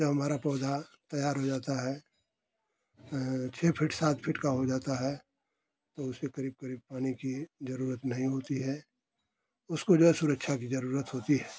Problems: none marked